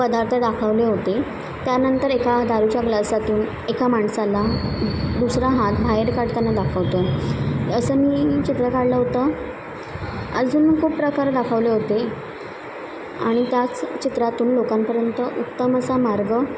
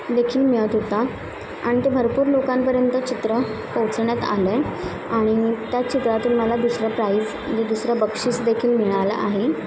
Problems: constant background noise, continuous background conversations